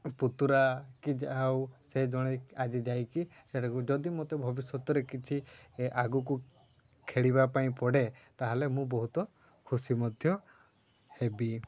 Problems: low volume